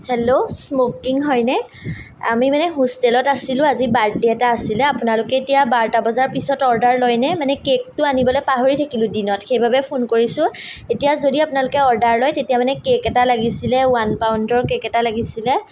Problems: none marked